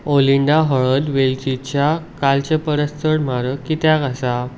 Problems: none marked